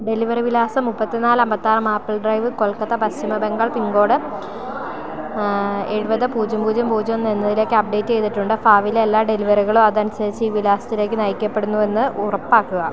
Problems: constant background noise